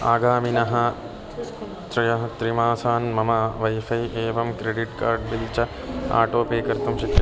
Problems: background sounds at intervals